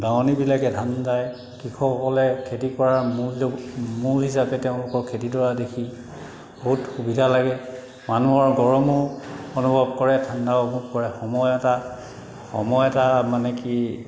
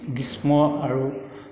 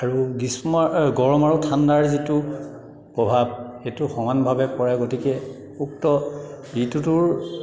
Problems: background sounds at intervals